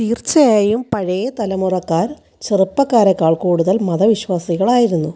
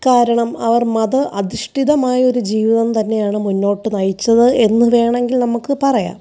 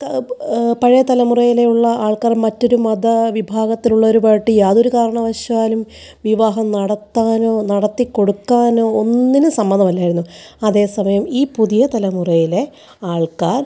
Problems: none marked